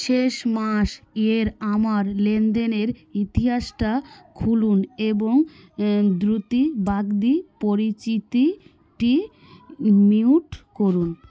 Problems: background sounds at intervals, continuous background conversations